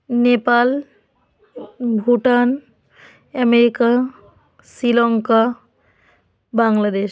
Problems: none marked